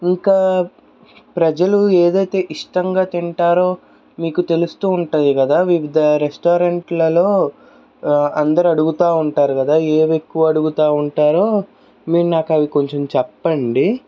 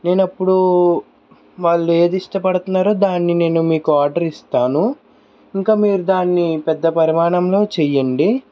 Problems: background sounds at intervals